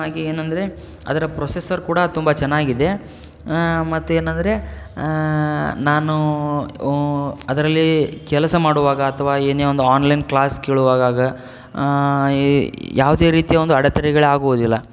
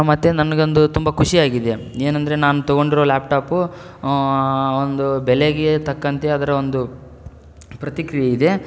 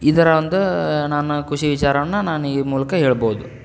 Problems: none marked